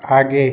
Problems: constant background noise